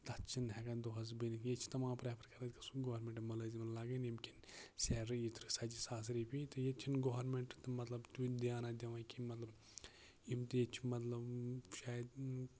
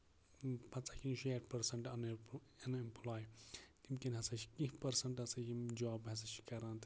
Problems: constant background noise, low volume